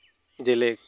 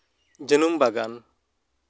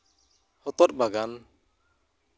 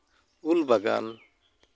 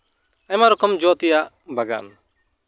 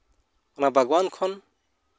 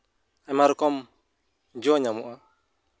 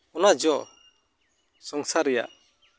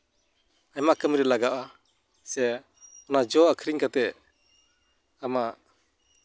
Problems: none marked